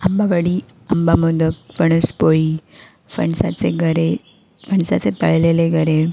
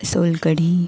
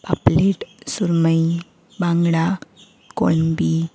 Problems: none marked